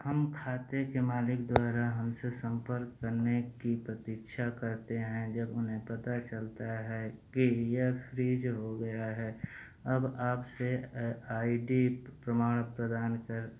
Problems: constant background noise